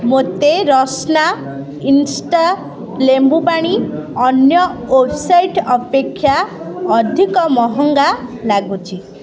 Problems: constant background noise